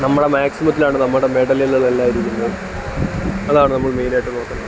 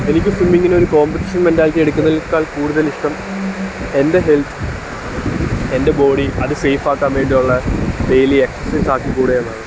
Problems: constant background noise, low volume